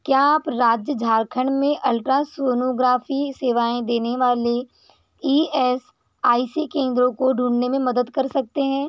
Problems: none marked